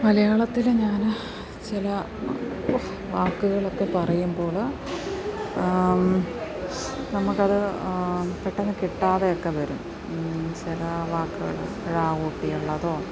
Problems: continuous background conversations, low volume